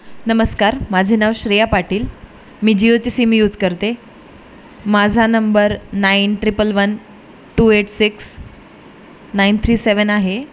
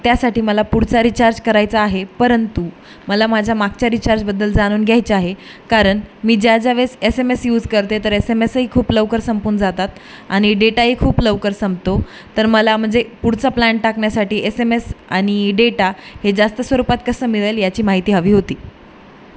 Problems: constant background noise